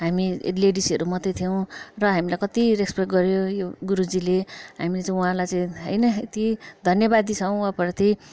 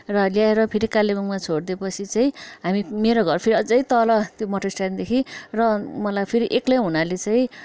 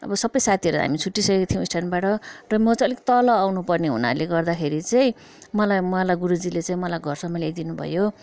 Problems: background conversations at intervals